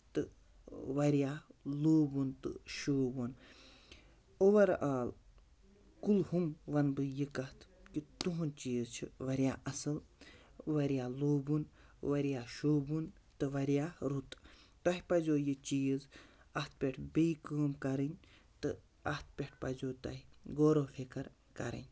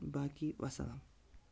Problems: none marked